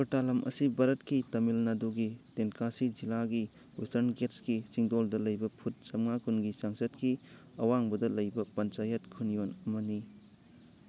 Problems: background conversations at intervals